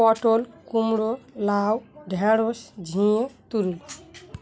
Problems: none marked